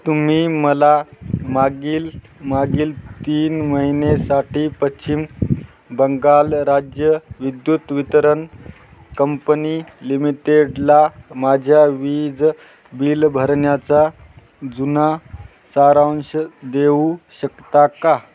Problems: none marked